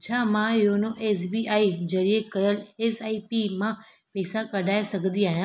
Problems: none marked